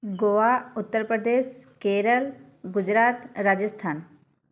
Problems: constant background noise